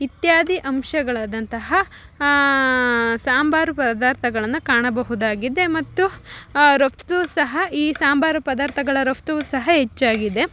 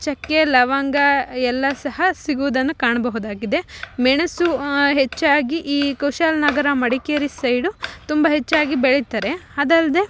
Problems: background sounds at intervals